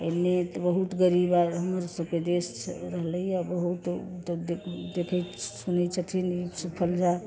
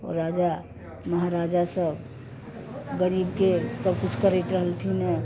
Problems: constant background noise